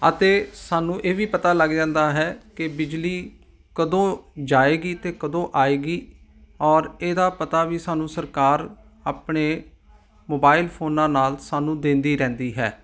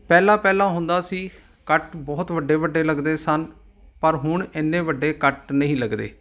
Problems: background sounds at intervals